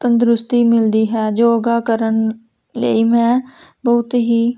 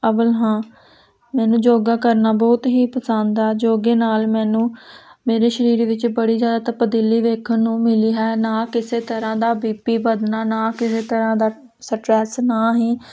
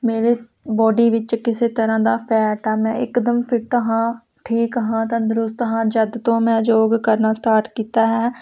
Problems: constant background noise